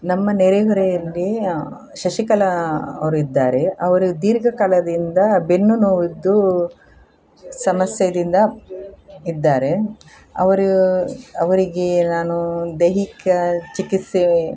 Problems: none marked